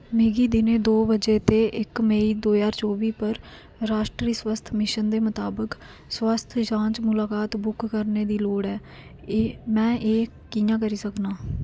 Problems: constant background noise